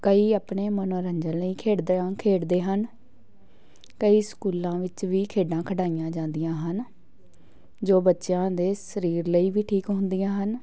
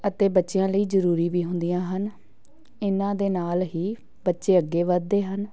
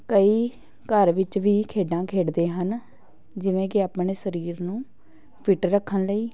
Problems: background sounds at intervals, continuous background conversations